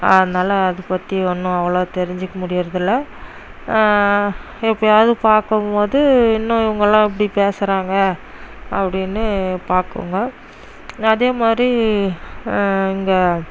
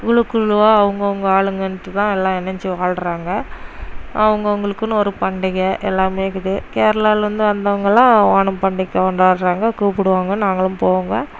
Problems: none marked